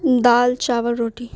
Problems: constant background noise